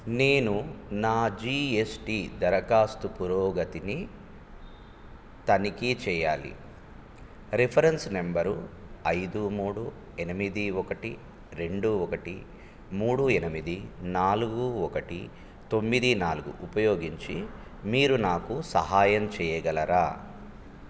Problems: none marked